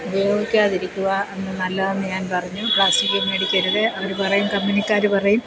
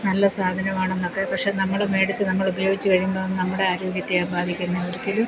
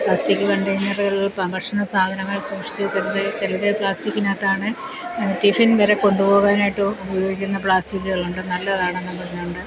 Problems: constant background noise